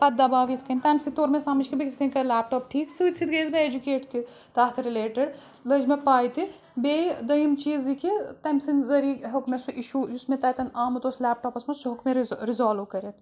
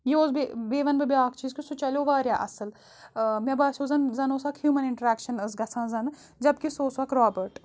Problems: background sounds at intervals